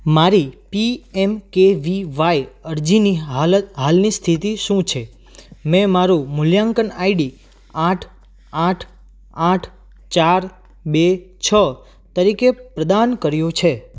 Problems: none marked